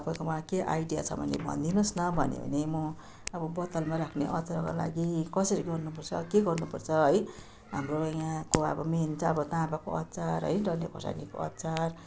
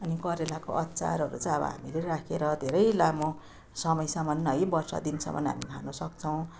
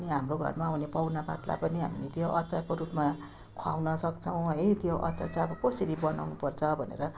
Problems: constant background noise